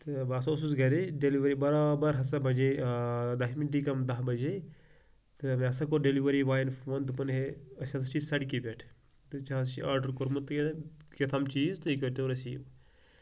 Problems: background sounds at intervals